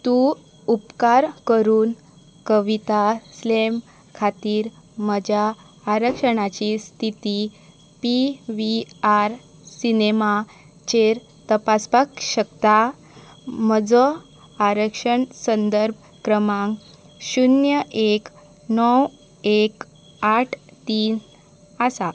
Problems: constant background noise